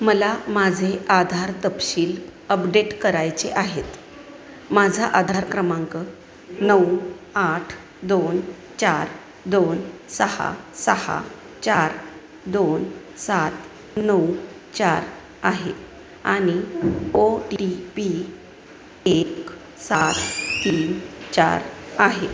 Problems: none marked